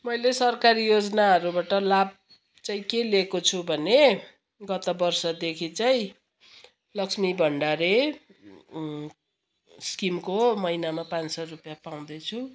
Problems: background sounds at intervals